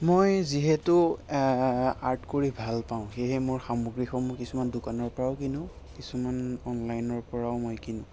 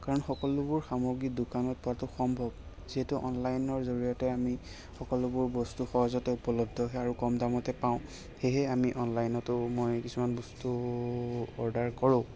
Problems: constant background noise, background conversations at intervals